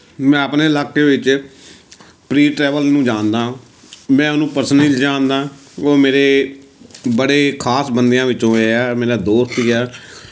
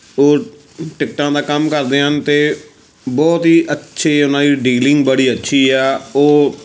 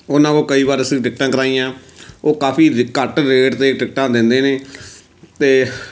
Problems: background sounds at intervals